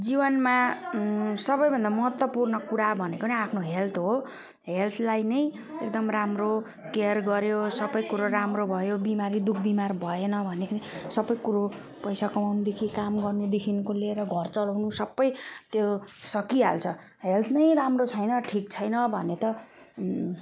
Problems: none marked